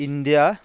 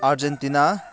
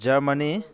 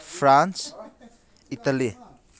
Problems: background sounds at intervals